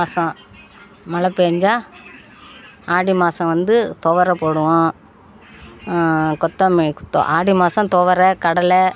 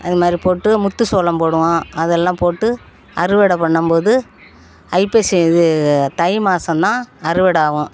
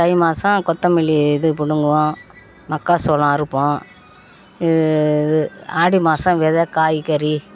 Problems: background conversations at intervals